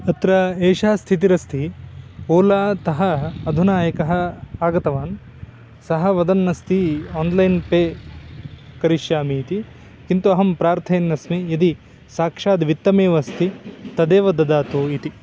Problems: constant background noise, continuous background conversations